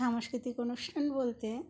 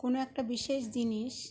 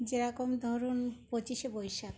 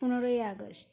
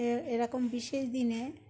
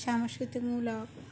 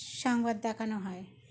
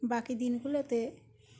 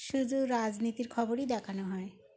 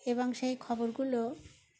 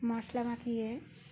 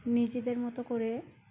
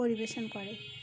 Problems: constant background noise, background conversations at intervals